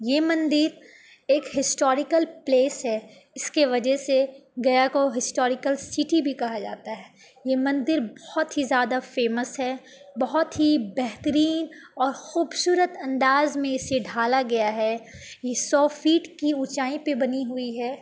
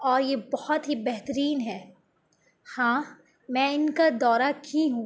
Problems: none marked